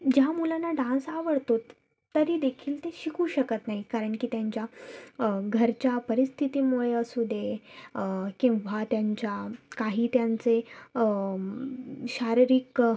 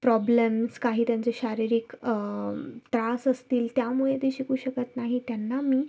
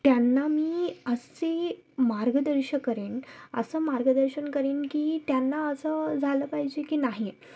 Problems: none marked